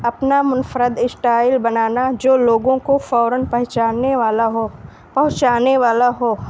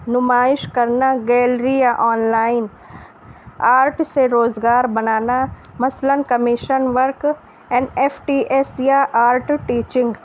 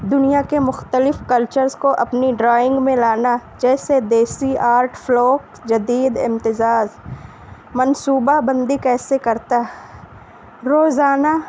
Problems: constant background noise